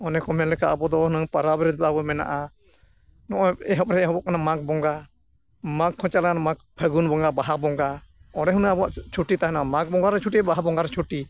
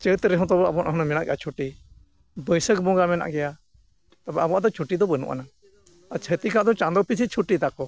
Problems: none marked